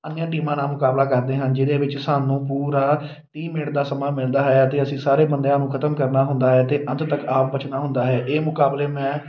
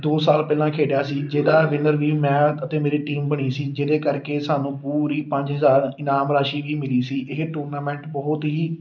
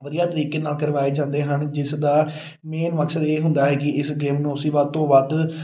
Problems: none marked